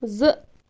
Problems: constant background noise